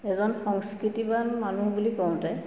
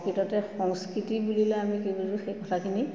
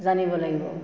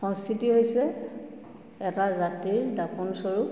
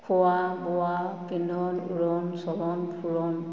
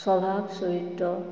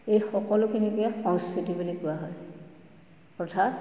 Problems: constant background noise, background conversations at intervals, echo